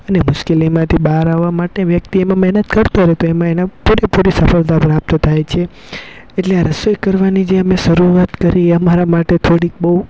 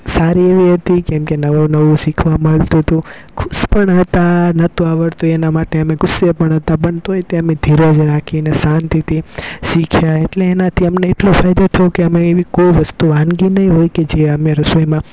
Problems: none marked